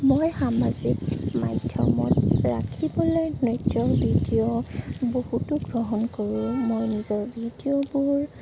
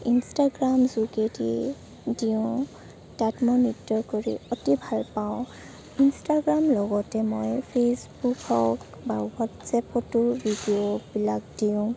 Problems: none marked